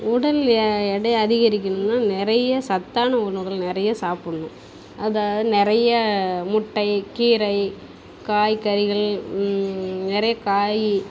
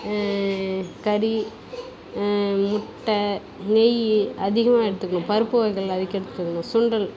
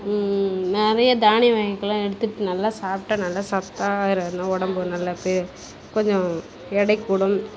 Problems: background sounds at intervals